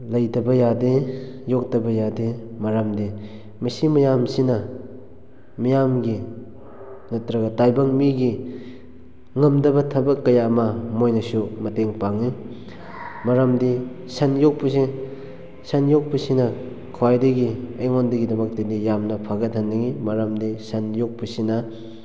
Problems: low volume